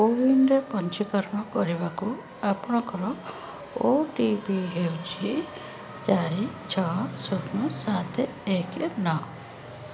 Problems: constant background noise